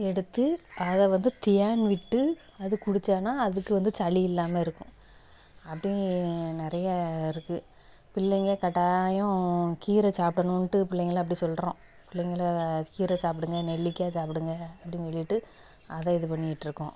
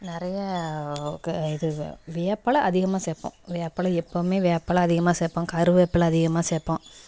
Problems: background sounds at intervals, echo